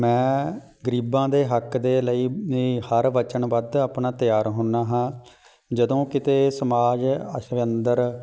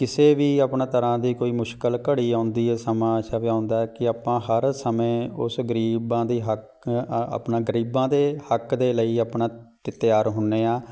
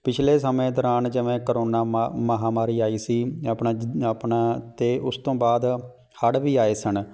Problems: none marked